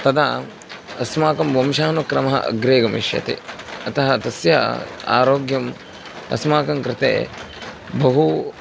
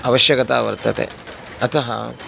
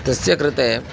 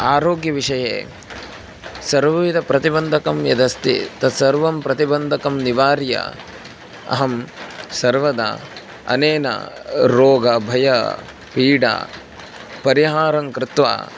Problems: constant background noise